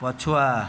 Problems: constant background noise